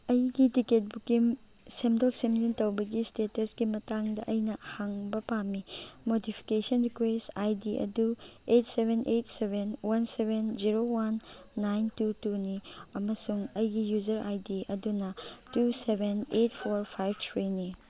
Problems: constant background noise, background conversations at intervals